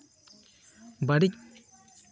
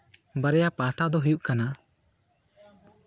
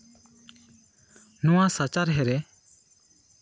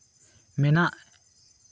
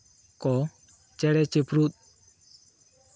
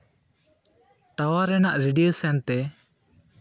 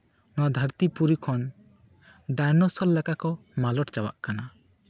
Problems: constant background noise, continuous background conversations